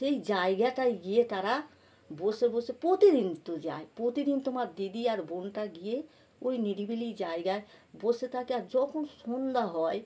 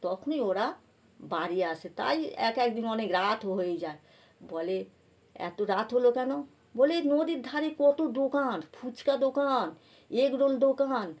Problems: background sounds at intervals